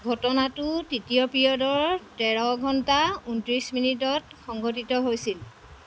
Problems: constant background noise